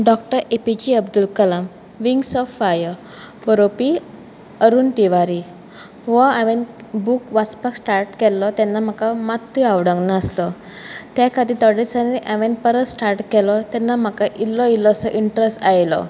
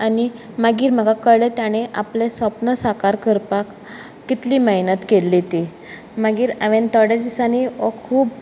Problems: background sounds at intervals